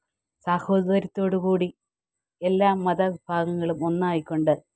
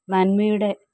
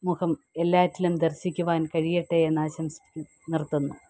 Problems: background sounds at intervals